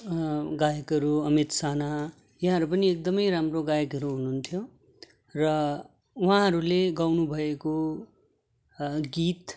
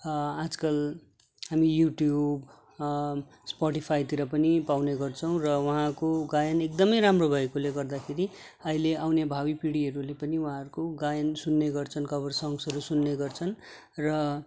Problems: constant background noise